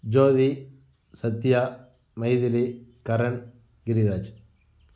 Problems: none marked